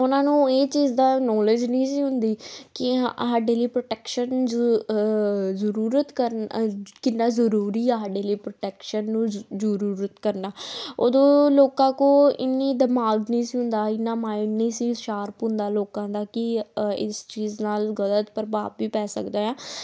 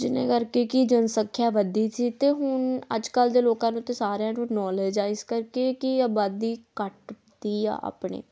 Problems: none marked